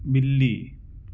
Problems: constant background noise